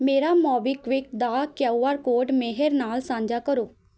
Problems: none marked